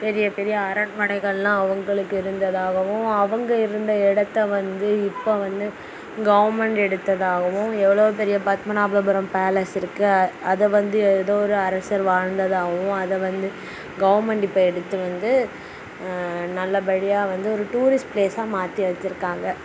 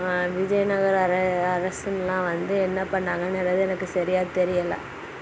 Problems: constant background noise